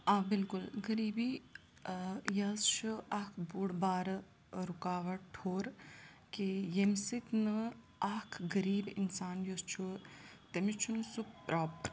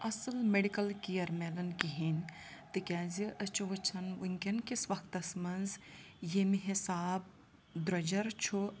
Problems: continuous background conversations